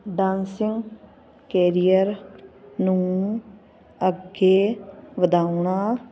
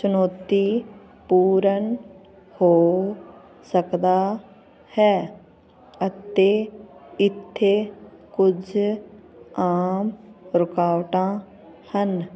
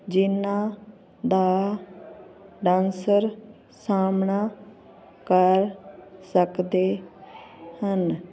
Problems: none marked